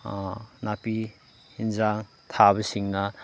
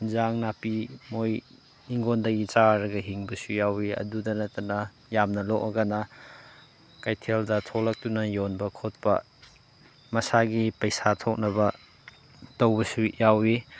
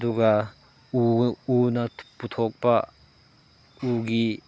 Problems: background sounds at intervals